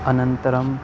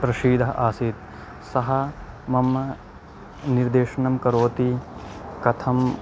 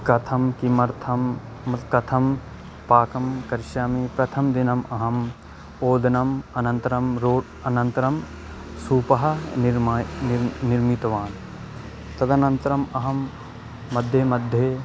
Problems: constant background noise